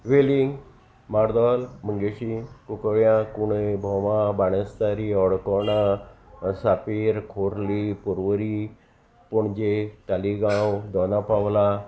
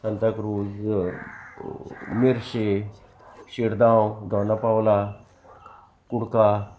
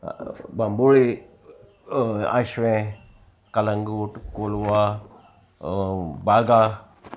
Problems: constant background noise, continuous background conversations